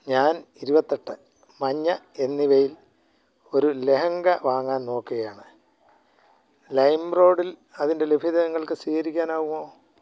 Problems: low volume